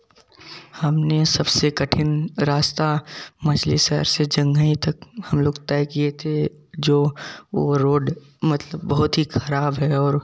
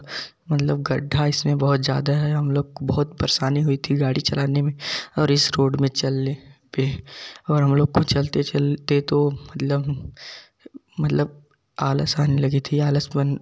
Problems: background sounds at intervals, background conversations at intervals